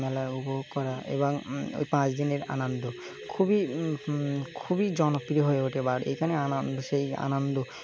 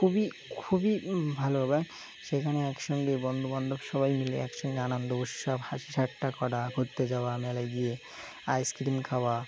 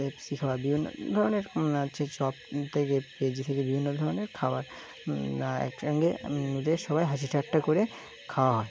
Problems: background sounds at intervals